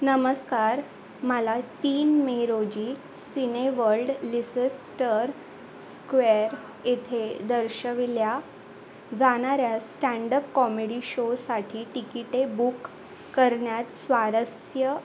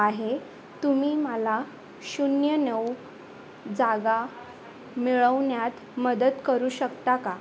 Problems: constant background noise, continuous background conversations